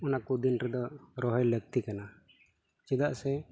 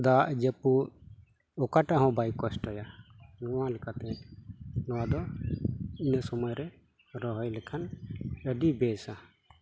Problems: constant background noise